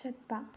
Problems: low volume